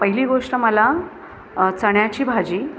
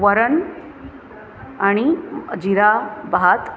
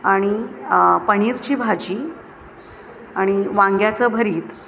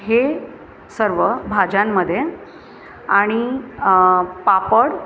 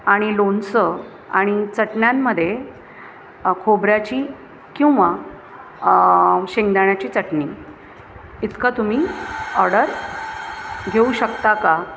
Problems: constant background noise